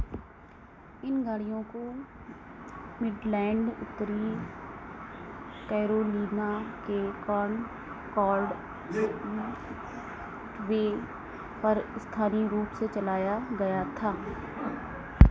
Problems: constant background noise